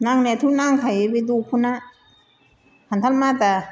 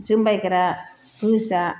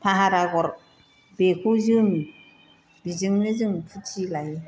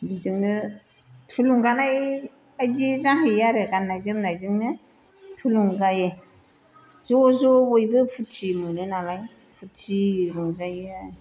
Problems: constant background noise